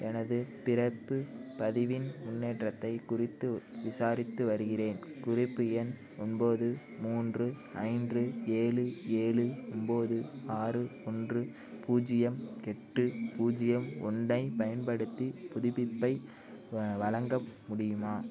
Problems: constant background noise, low volume